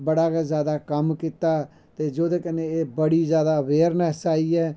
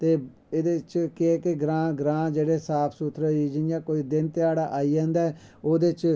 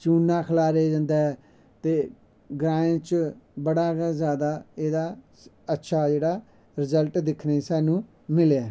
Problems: background sounds at intervals